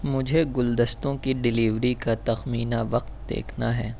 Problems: constant background noise